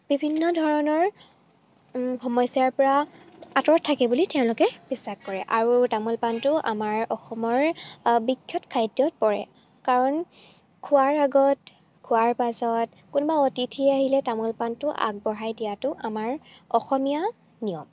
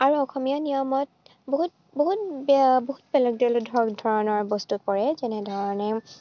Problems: none marked